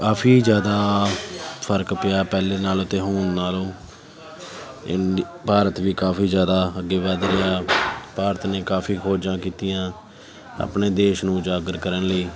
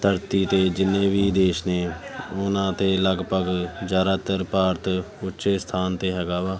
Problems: background sounds at intervals